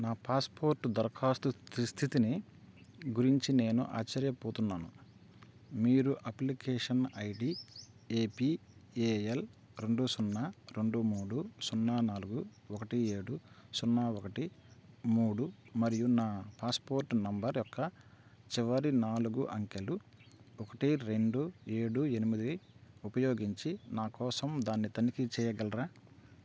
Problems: constant background noise